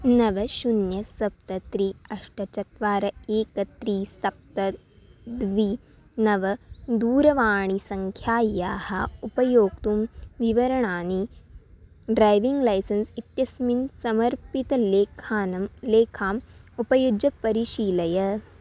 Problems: none marked